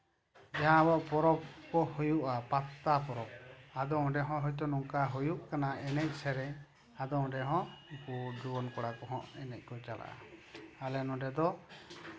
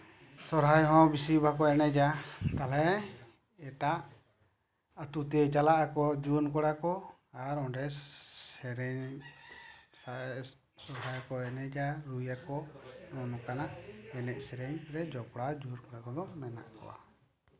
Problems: background sounds at intervals, background conversations at intervals